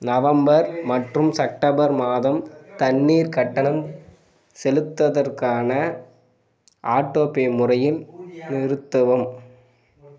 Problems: background conversations at intervals